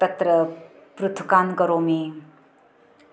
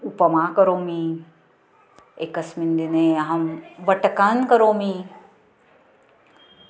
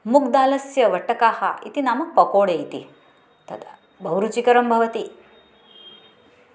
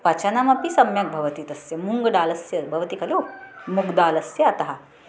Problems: background sounds at intervals